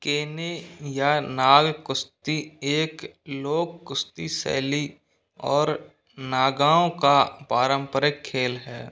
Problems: background sounds at intervals